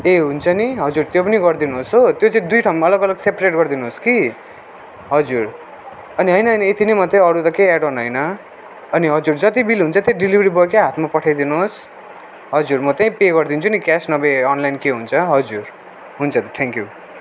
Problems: none marked